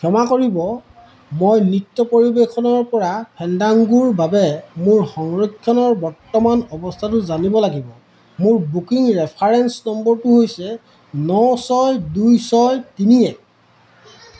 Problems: none marked